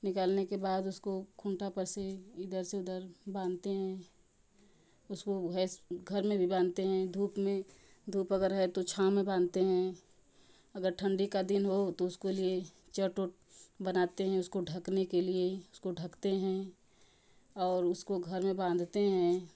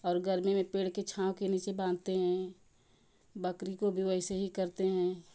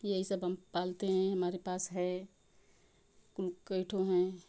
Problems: none marked